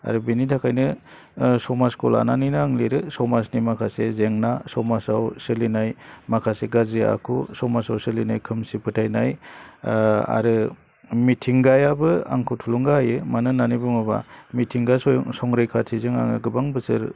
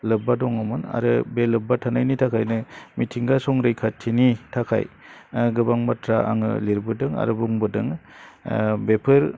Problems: low volume